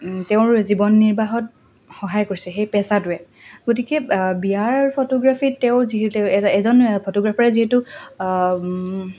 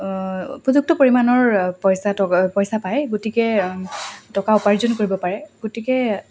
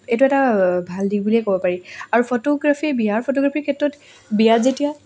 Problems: constant background noise